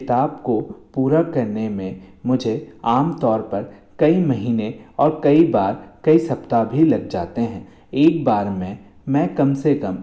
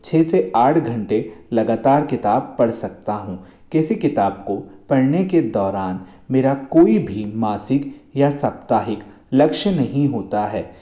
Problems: echo